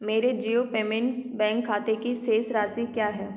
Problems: echo